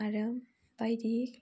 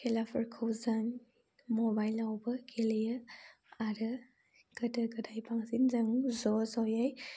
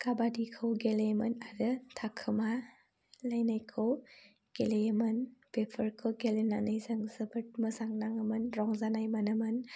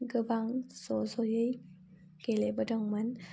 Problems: constant background noise